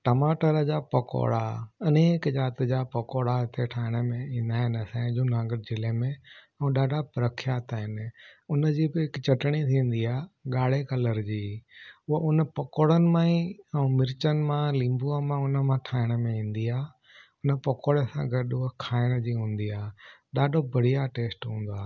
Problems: none marked